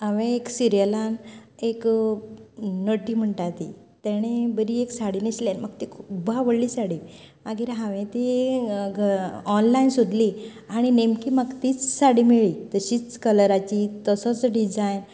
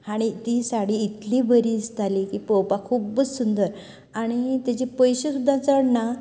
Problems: continuous background conversations